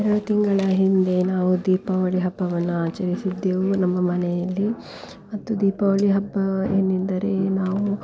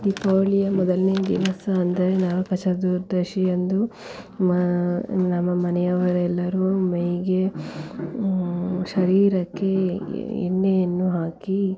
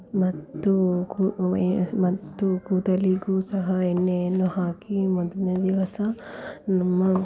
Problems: background sounds at intervals